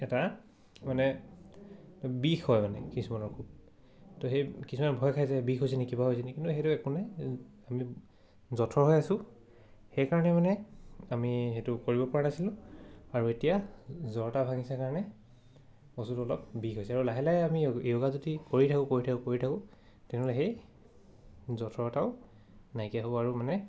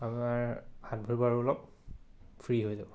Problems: none marked